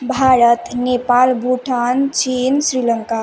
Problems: none marked